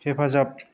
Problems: low volume